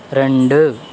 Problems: constant background noise